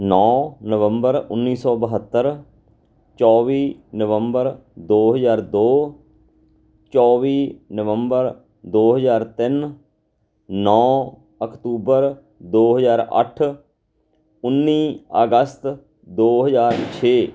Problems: background sounds at intervals